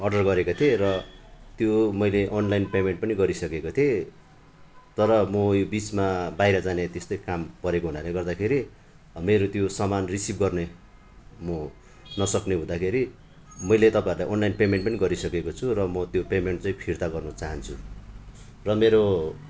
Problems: constant background noise